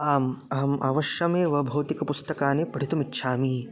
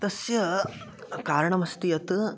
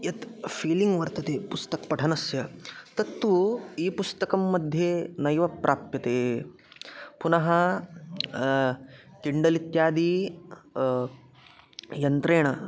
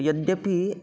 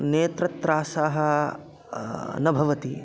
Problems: constant background noise, continuous background conversations